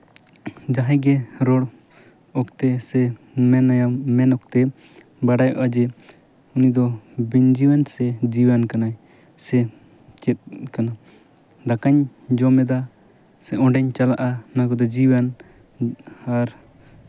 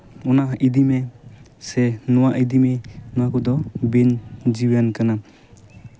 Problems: background sounds at intervals